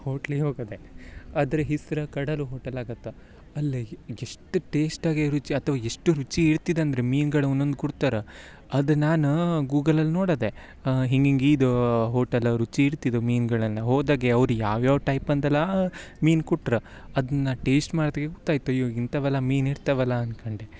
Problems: background sounds at intervals